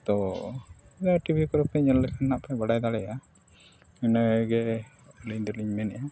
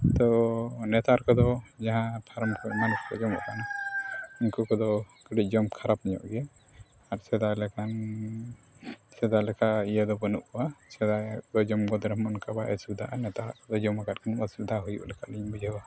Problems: constant background noise